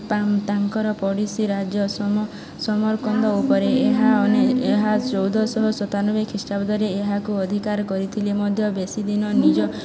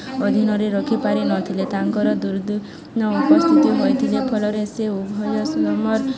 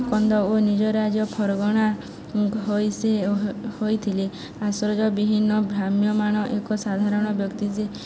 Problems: constant background noise, continuous background conversations